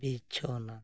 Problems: low volume